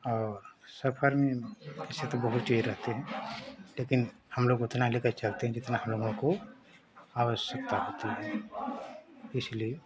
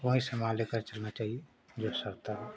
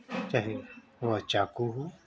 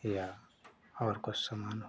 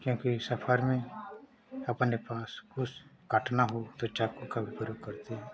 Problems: none marked